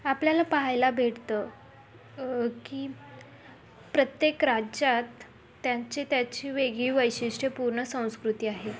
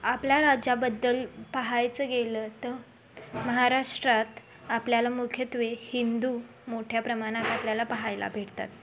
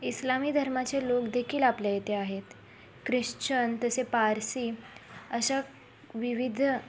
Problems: constant background noise, continuous background conversations